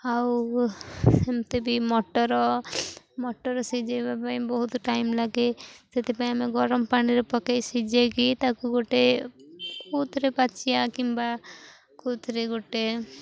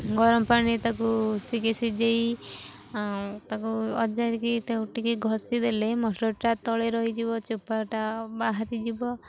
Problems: none marked